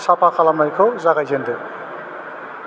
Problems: constant background noise